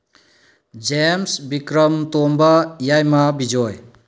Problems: low volume